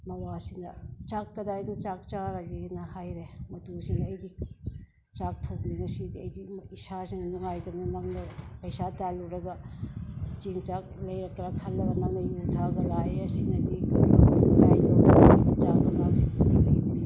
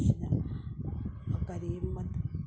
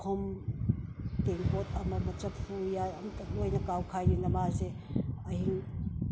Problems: none marked